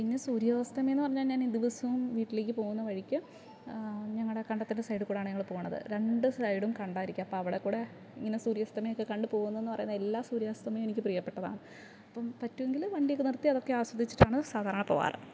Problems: none marked